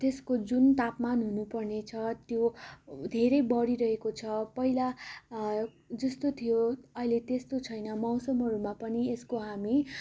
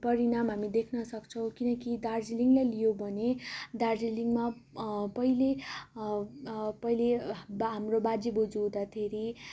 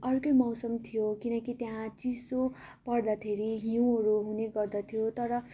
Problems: constant background noise